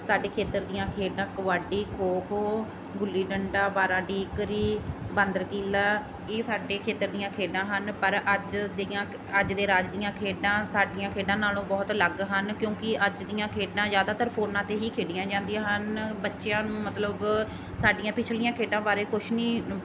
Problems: background sounds at intervals